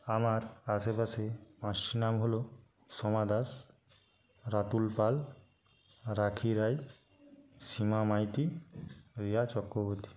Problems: none marked